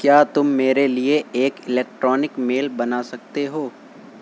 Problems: constant background noise